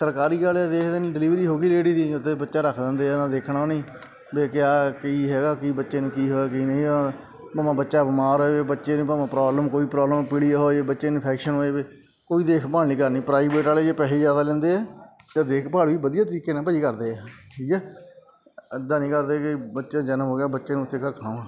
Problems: background sounds at intervals